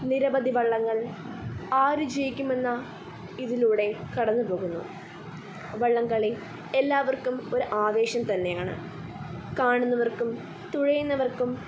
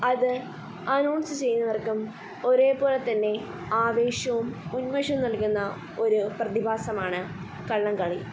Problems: constant background noise, low volume